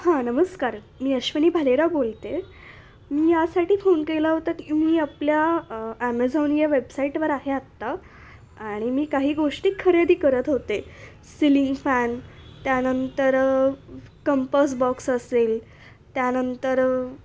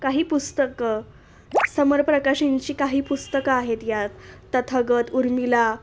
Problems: constant background noise, background conversations at intervals